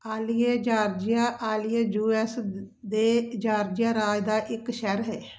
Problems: constant background noise